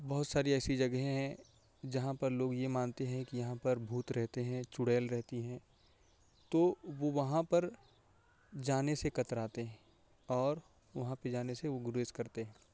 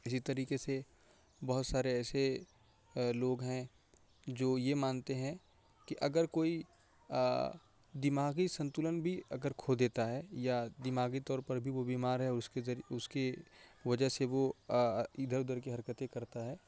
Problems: constant background noise